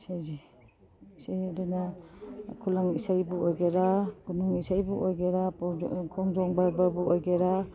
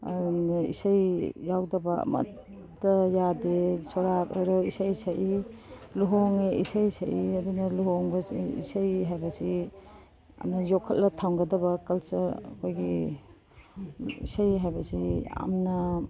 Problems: background sounds at intervals